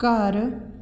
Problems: none marked